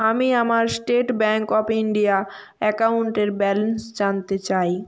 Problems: none marked